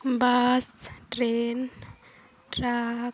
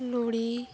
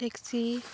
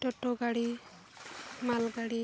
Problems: constant background noise